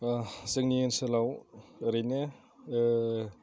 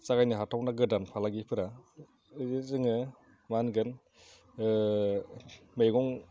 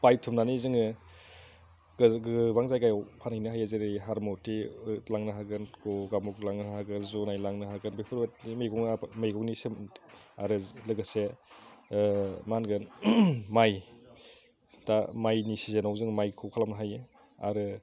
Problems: none marked